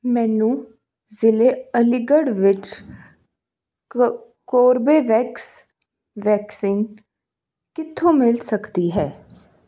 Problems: none marked